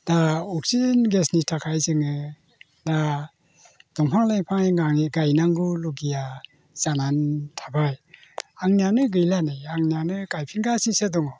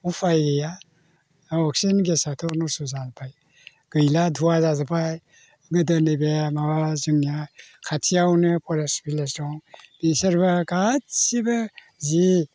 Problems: constant background noise